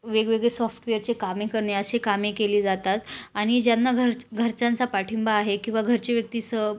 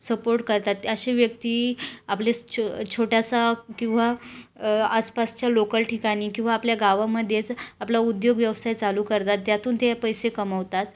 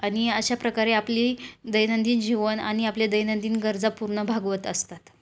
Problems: background sounds at intervals